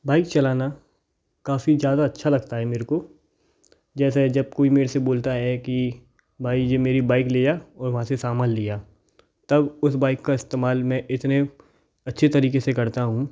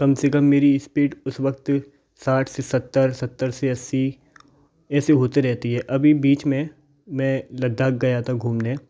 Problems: background sounds at intervals